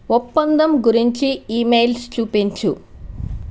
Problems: constant background noise